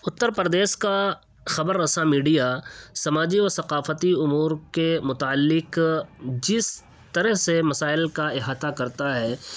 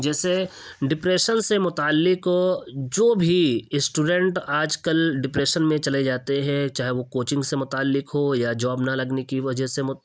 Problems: none marked